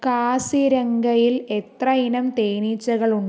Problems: none marked